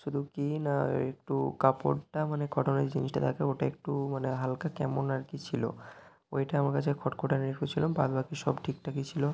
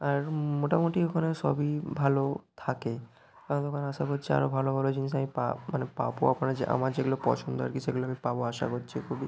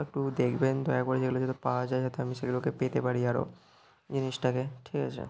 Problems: background sounds at intervals